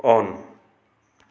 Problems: none marked